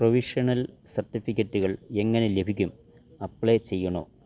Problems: none marked